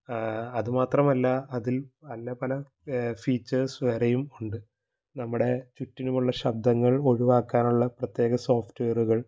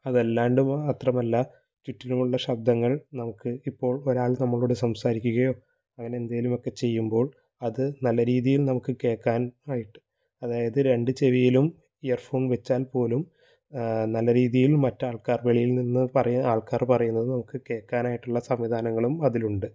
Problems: low volume